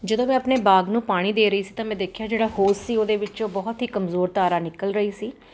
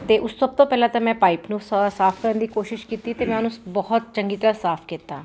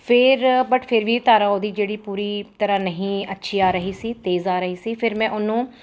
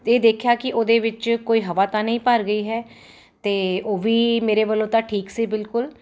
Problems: none marked